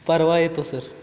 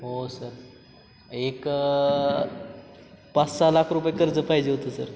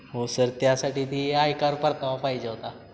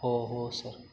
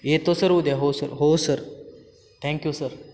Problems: constant background noise